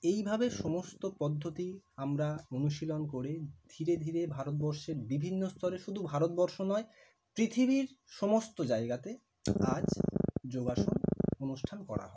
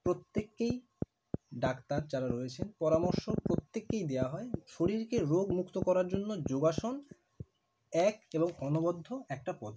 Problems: constant background noise